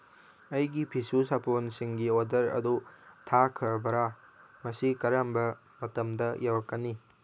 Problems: none marked